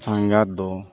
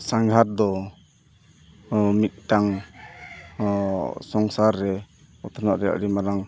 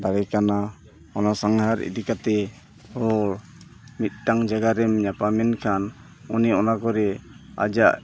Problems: constant background noise, continuous background conversations